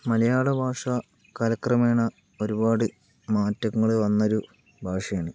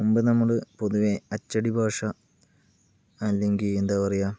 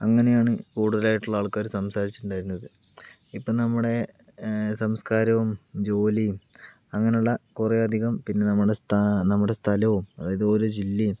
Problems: background sounds at intervals, low volume